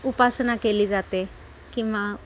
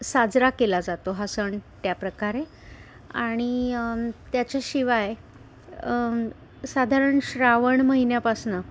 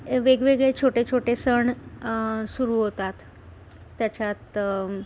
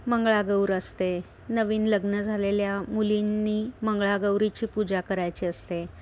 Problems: none marked